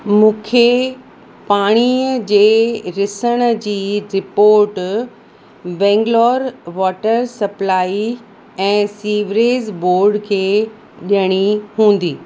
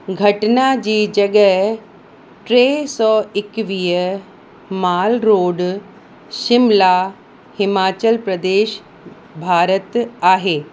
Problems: constant background noise, echo